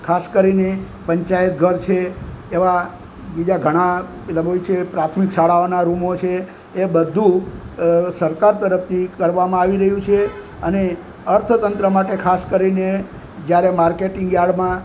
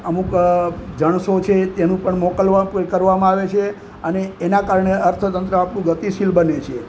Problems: constant background noise